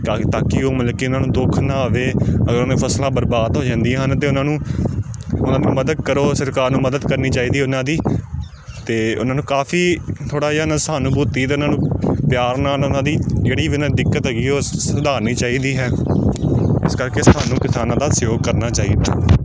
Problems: none marked